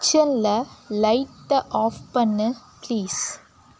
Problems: constant background noise